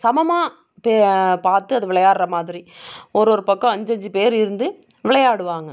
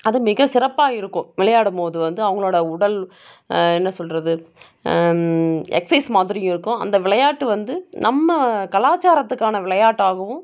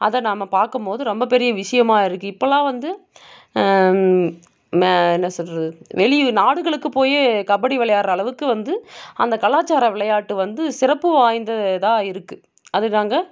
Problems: none marked